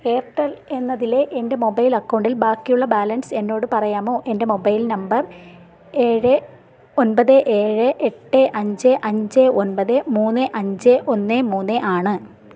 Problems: none marked